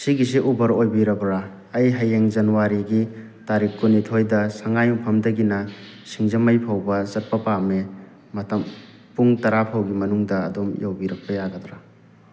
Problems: background sounds at intervals